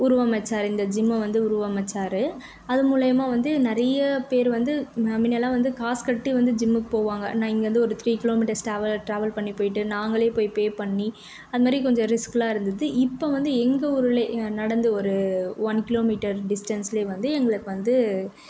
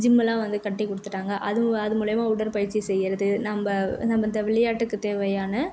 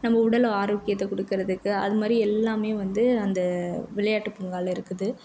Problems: none marked